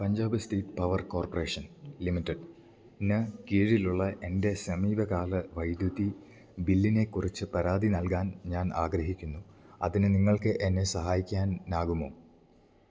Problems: none marked